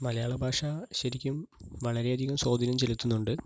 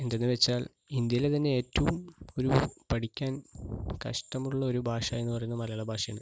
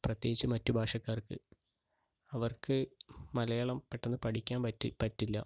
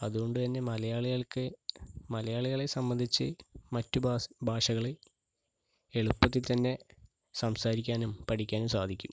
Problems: background sounds at intervals, low volume